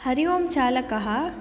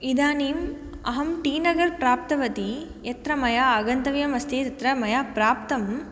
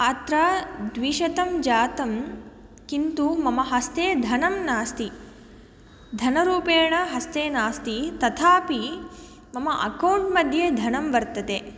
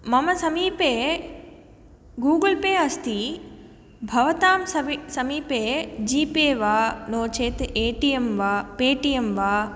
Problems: none marked